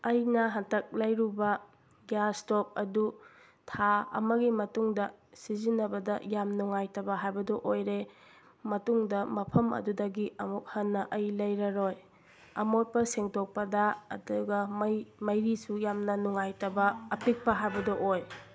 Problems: background sounds at intervals